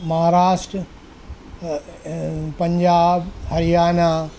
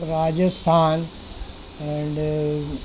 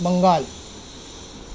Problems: background sounds at intervals